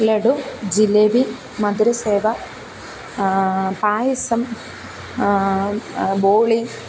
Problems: constant background noise, low volume